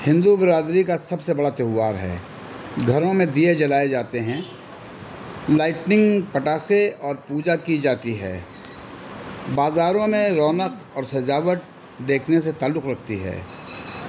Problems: constant background noise